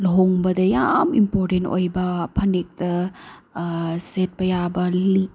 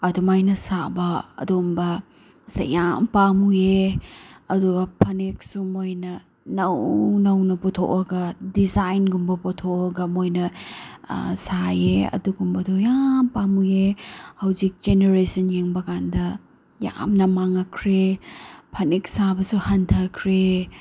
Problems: none marked